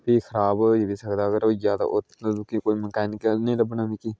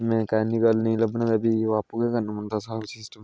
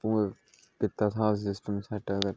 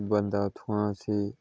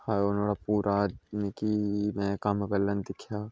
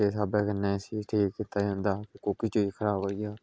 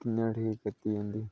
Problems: low volume